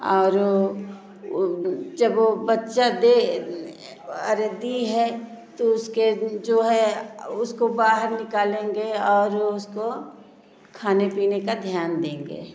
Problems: constant background noise